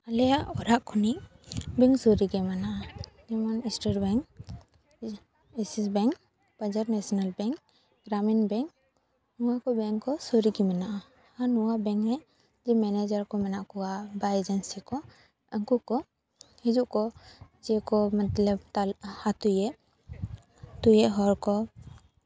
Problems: none marked